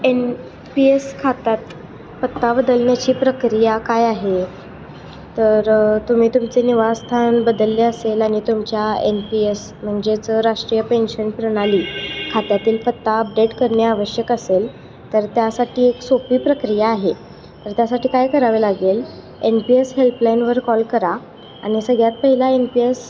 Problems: constant background noise